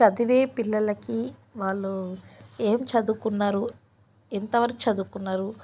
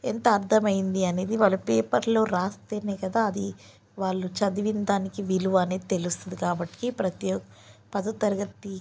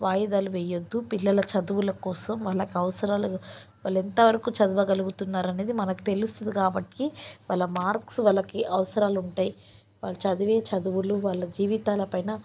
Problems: none marked